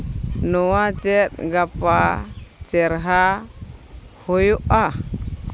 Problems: none marked